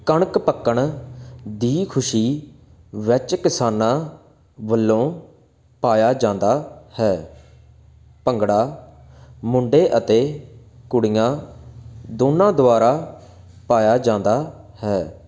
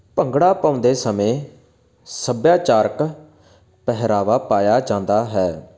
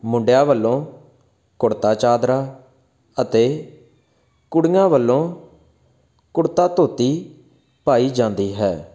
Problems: background sounds at intervals